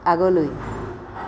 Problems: background sounds at intervals